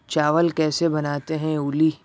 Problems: none marked